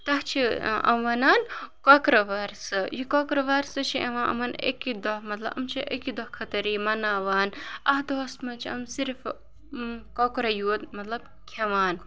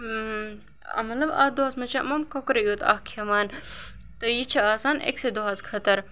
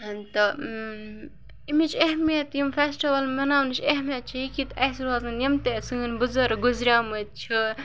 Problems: background sounds at intervals